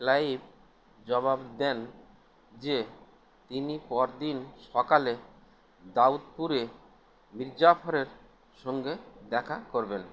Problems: constant background noise